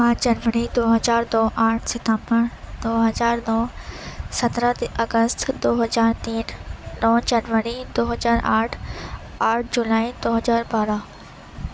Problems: constant background noise